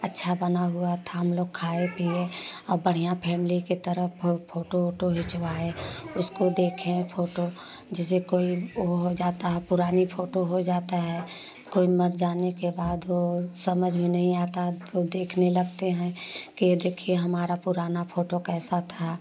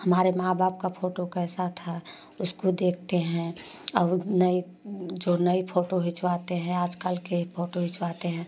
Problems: constant background noise, background conversations at intervals